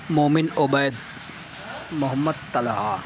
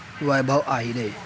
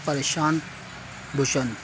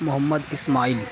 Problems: constant background noise, continuous background conversations